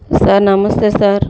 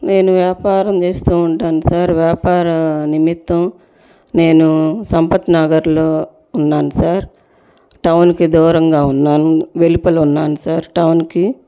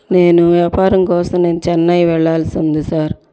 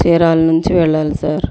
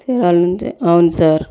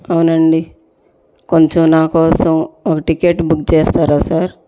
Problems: none marked